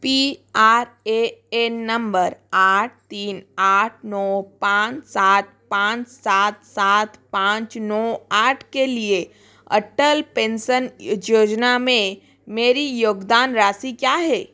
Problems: none marked